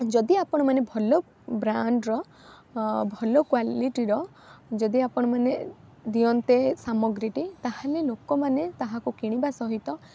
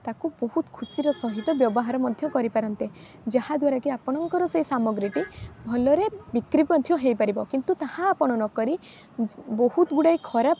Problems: constant background noise